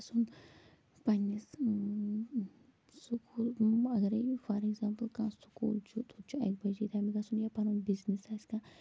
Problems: constant background noise, low volume